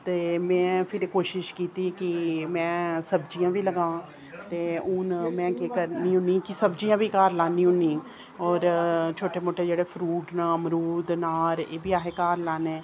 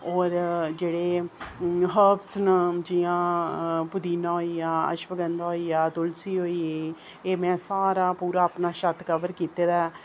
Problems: none marked